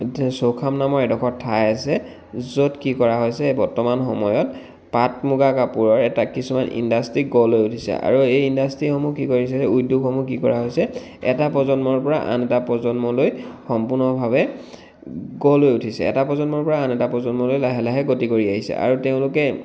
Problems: none marked